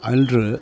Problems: none marked